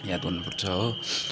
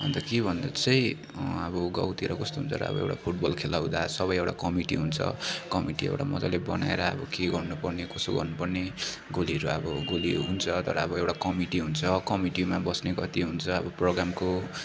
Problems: continuous background conversations